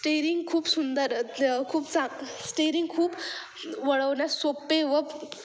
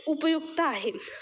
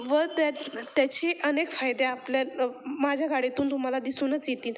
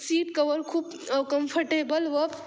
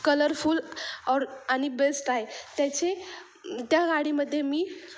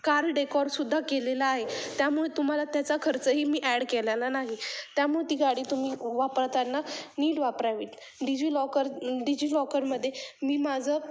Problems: constant background noise, background conversations at intervals